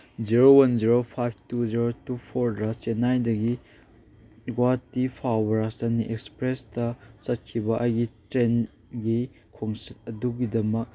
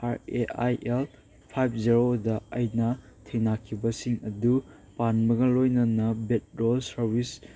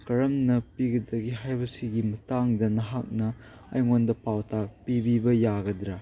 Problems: none marked